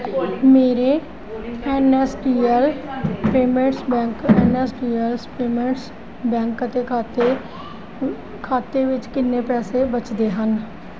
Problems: constant background noise, background conversations at intervals